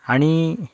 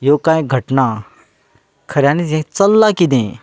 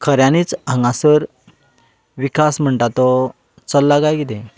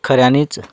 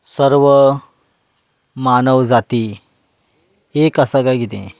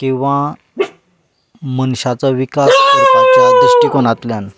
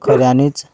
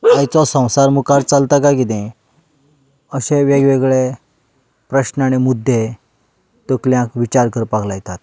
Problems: background sounds at intervals